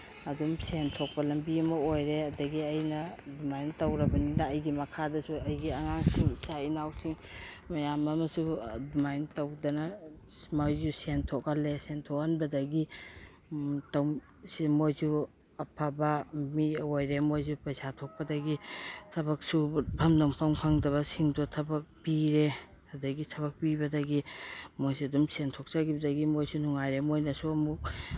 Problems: background sounds at intervals